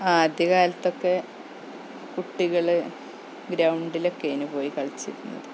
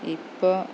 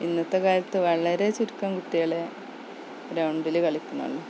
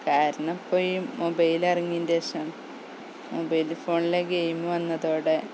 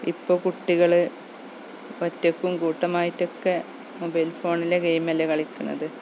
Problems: background sounds at intervals, low volume